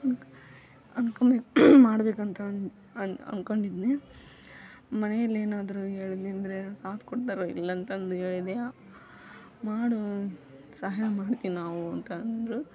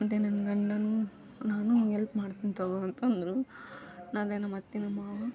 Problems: background sounds at intervals